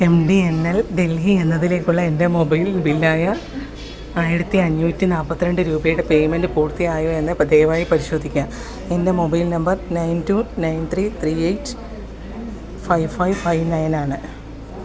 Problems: background sounds at intervals